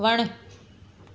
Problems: constant background noise, echo